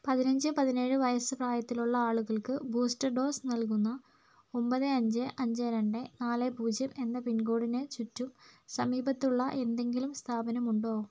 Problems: none marked